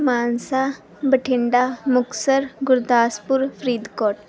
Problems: background sounds at intervals, background conversations at intervals